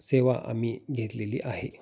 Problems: none marked